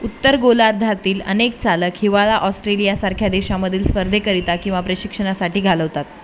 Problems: constant background noise, background conversations at intervals